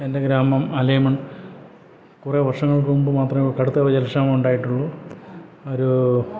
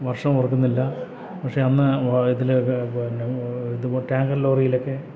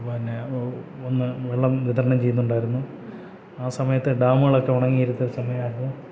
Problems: low volume